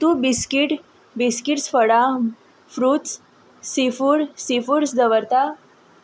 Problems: background sounds at intervals